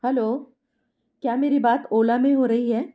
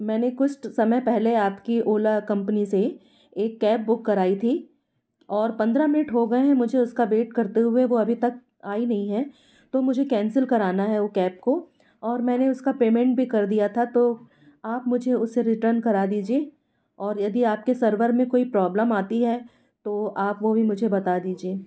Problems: background sounds at intervals